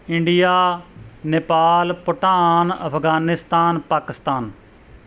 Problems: background sounds at intervals